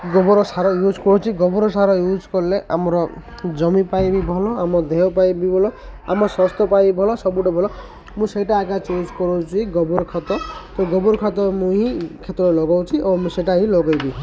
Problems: constant background noise, continuous background conversations